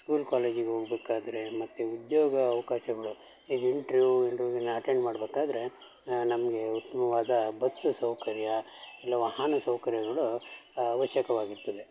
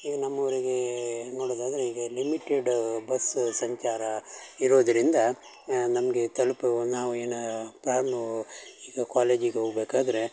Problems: background sounds at intervals